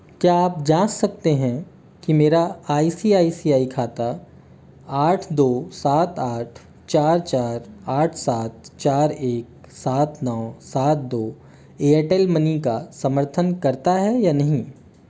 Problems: none marked